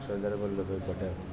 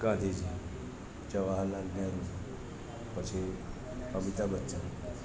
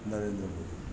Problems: constant background noise